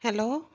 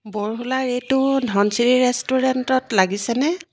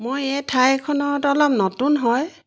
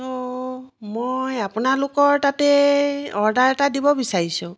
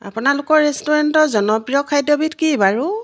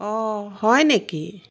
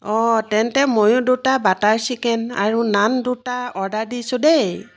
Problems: constant background noise